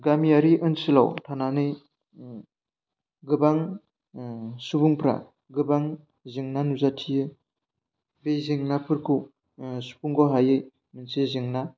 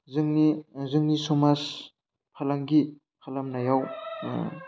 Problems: none marked